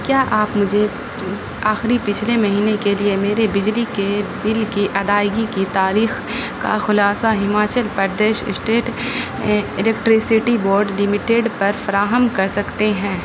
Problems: constant background noise